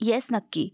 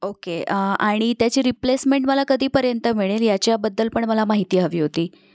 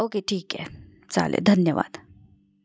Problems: constant background noise